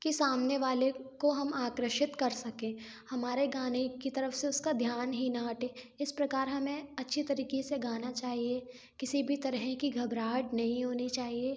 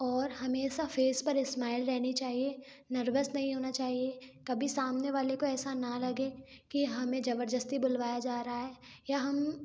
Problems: background sounds at intervals